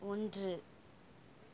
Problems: none marked